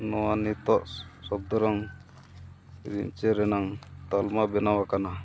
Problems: constant background noise